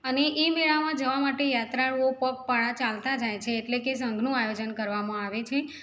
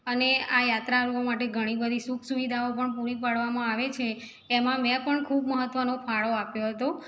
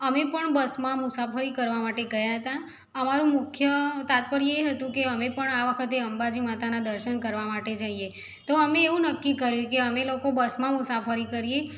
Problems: background sounds at intervals